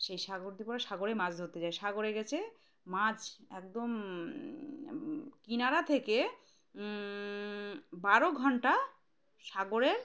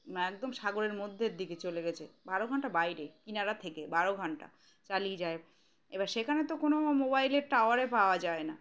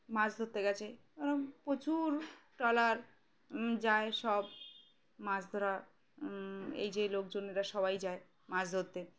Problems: background sounds at intervals